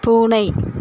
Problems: constant background noise